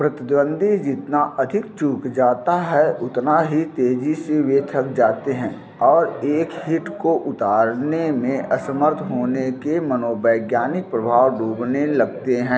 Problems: constant background noise